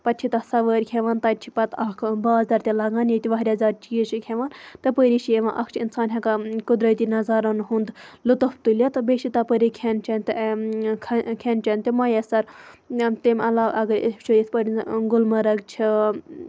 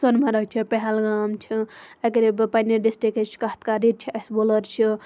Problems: background sounds at intervals